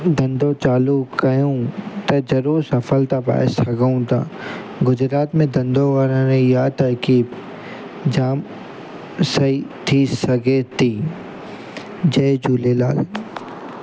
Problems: constant background noise